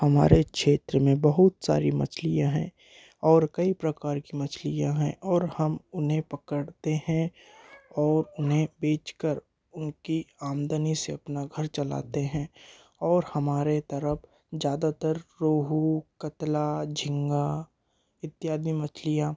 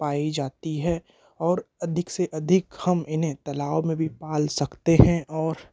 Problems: background conversations at intervals